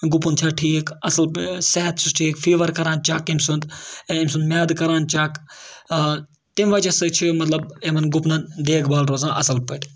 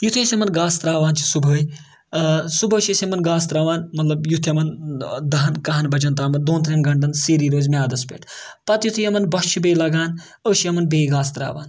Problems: background sounds at intervals